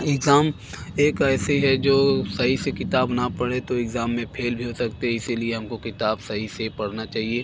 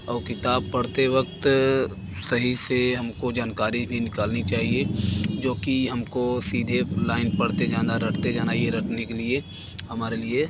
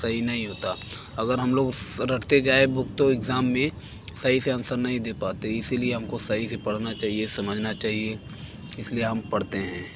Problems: constant background noise